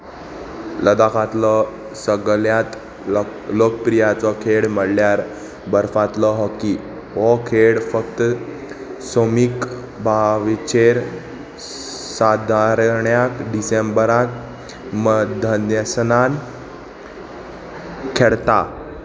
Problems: constant background noise, continuous background conversations